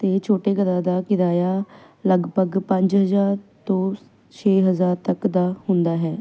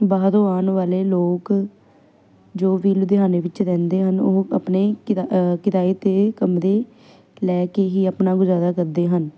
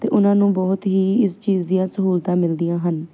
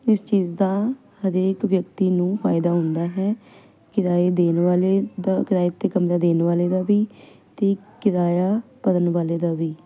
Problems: none marked